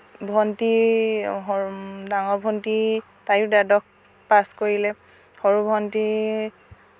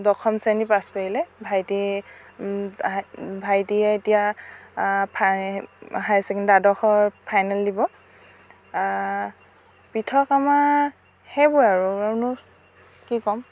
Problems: none marked